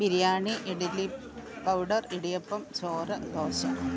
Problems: low volume